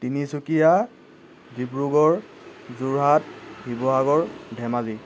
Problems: none marked